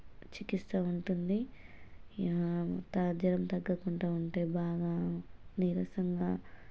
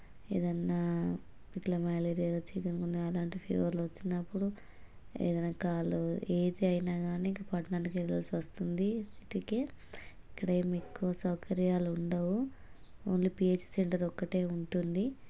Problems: low volume